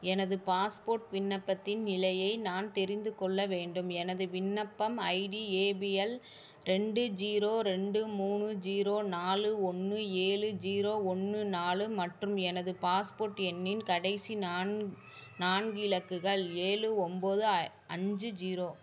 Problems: background conversations at intervals